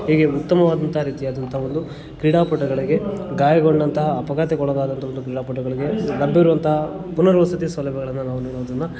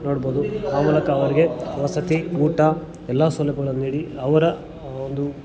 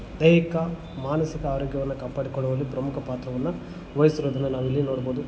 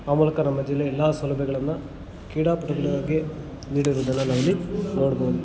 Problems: constant background noise